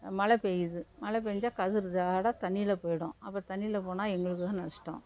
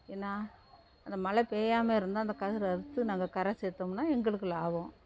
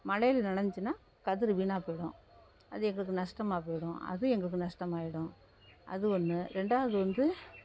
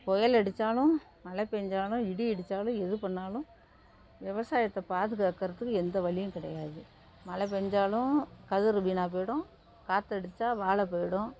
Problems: none marked